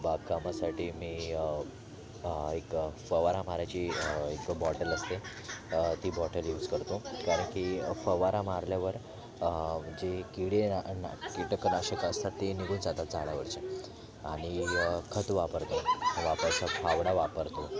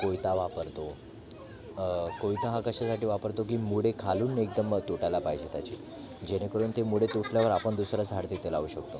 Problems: background sounds at intervals, continuous background conversations